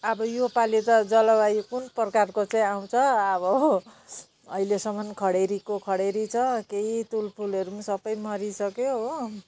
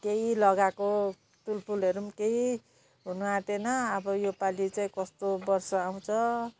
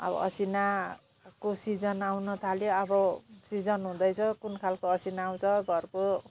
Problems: none marked